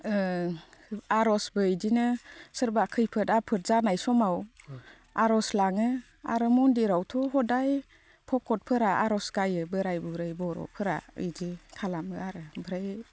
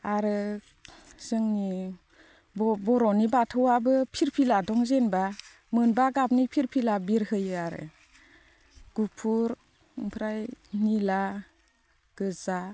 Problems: none marked